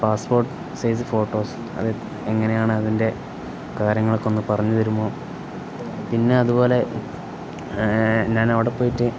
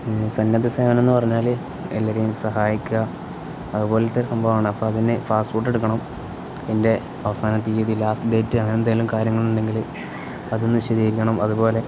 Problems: constant background noise